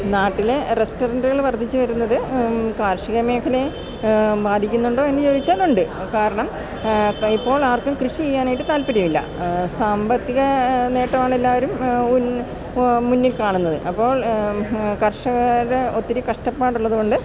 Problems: background sounds at intervals